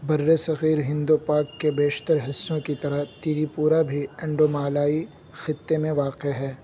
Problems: background sounds at intervals